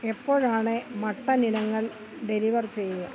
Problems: constant background noise